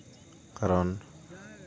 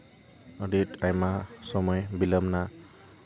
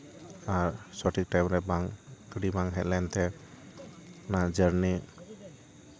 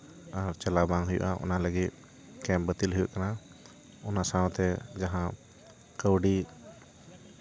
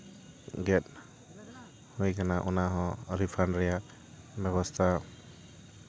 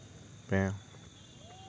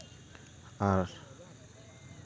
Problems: constant background noise, background conversations at intervals